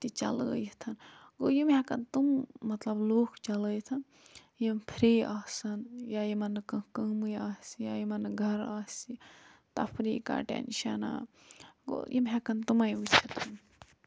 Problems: low volume